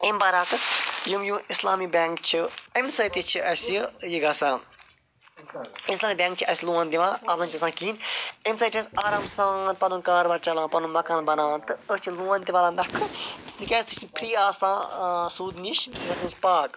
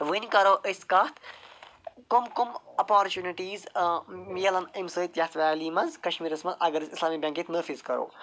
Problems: none marked